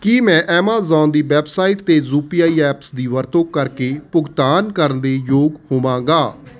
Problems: constant background noise